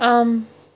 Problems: none marked